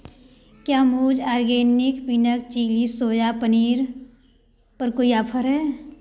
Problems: background sounds at intervals